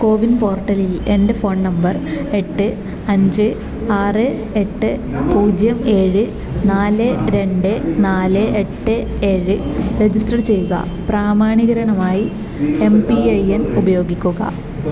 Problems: none marked